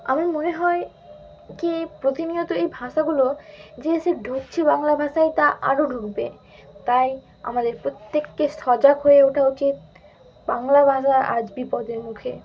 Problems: constant background noise